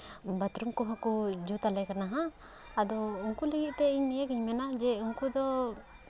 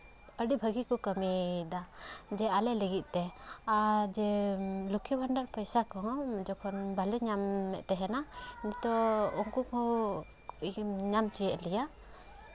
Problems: constant background noise